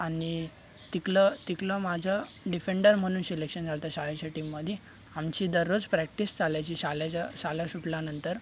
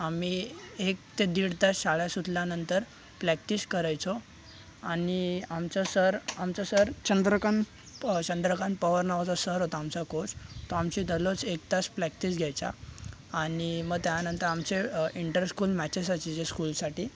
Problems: constant background noise, background conversations at intervals